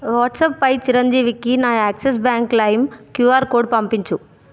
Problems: constant background noise